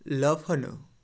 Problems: constant background noise, background conversations at intervals